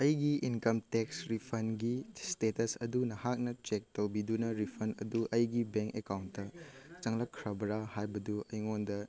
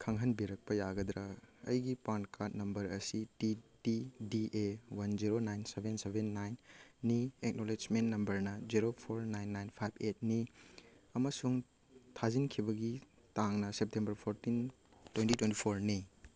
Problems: none marked